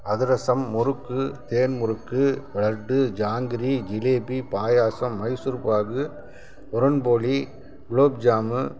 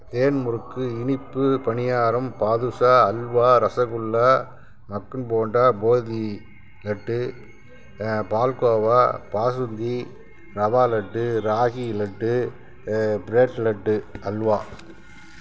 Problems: constant background noise